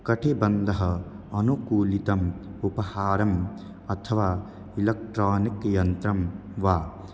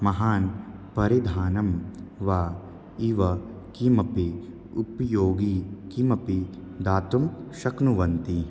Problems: constant background noise